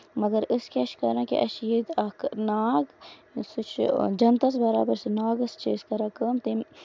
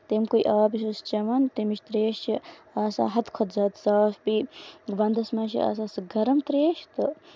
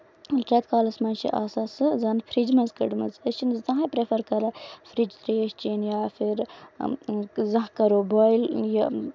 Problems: background sounds at intervals